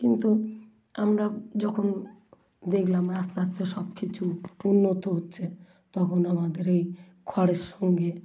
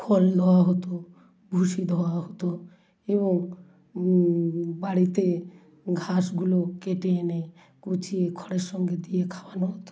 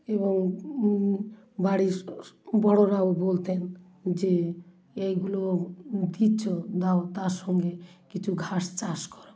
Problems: constant background noise